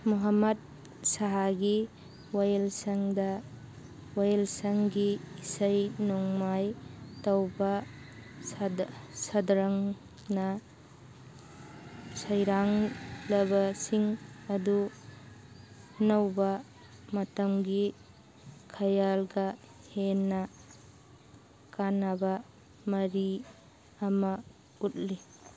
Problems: background sounds at intervals